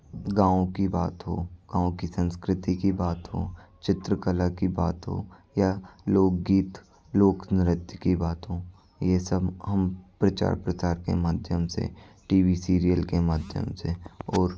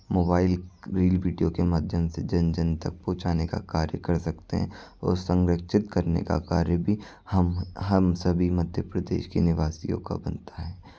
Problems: none marked